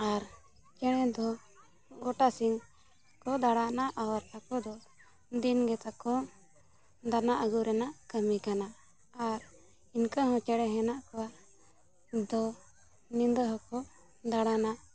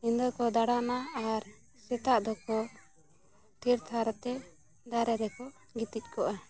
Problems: background sounds at intervals, continuous background conversations